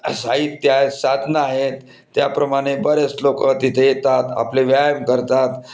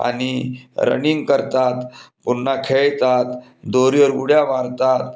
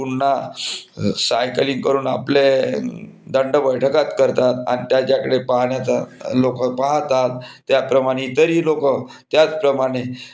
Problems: background sounds at intervals